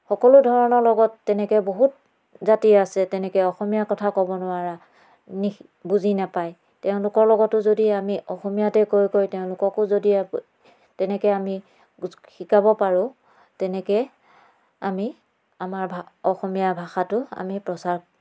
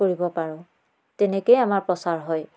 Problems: none marked